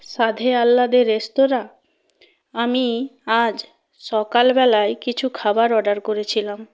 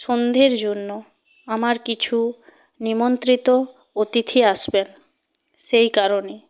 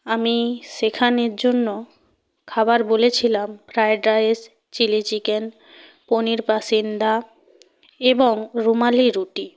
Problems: constant background noise